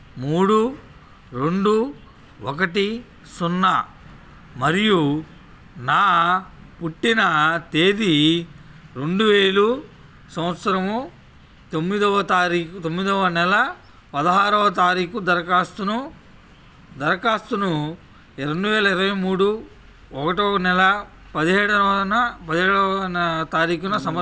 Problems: background sounds at intervals